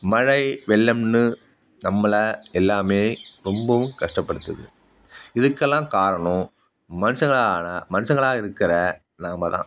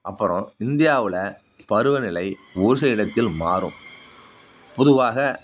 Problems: none marked